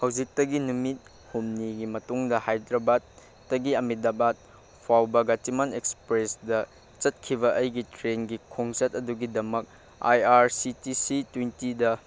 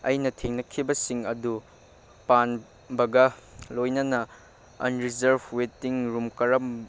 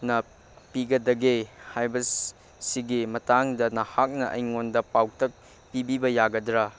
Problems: constant background noise